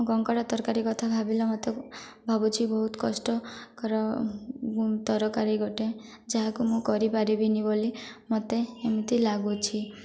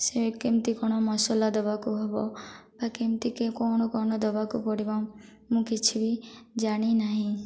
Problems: none marked